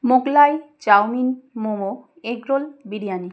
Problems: none marked